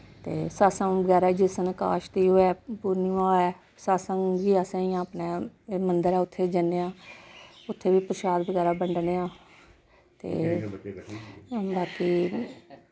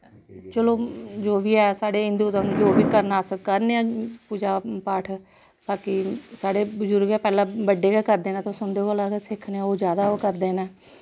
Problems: constant background noise